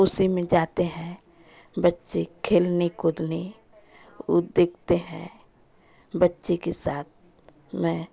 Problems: constant background noise